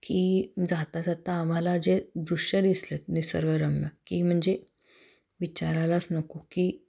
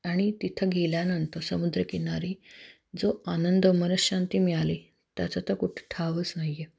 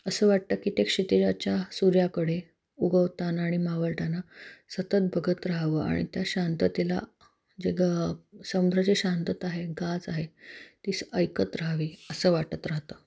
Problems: none marked